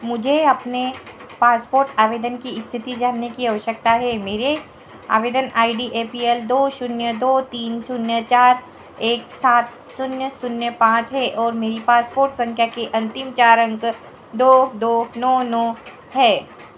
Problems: background sounds at intervals, echo